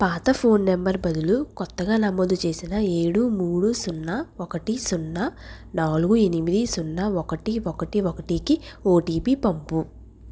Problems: none marked